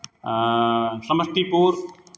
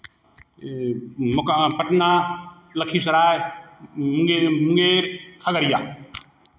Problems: background sounds at intervals